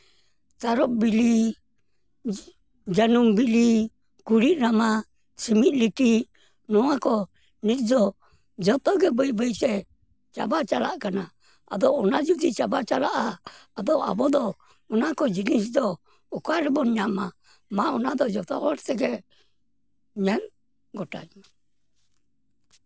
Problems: background sounds at intervals